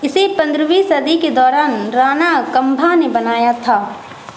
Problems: constant background noise